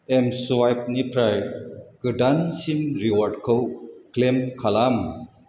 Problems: none marked